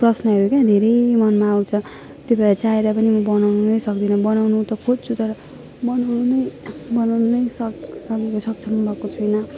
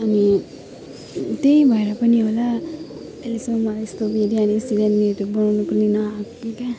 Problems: constant background noise, continuous background conversations